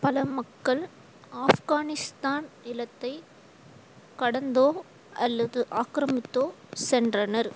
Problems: constant background noise